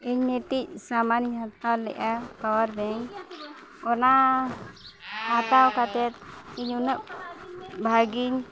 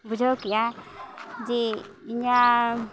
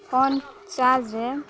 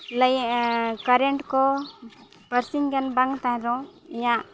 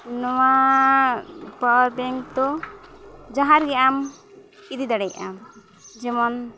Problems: continuous background conversations